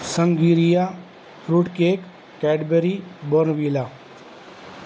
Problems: constant background noise